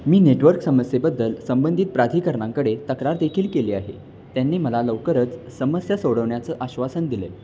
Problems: constant background noise